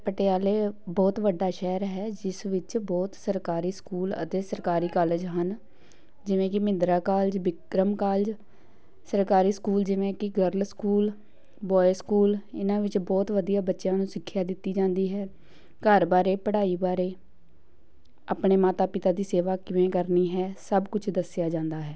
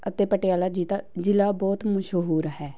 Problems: background sounds at intervals